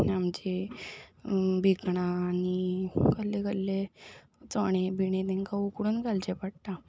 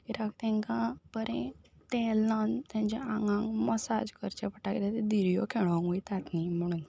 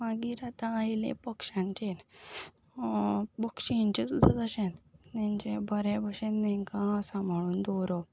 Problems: background sounds at intervals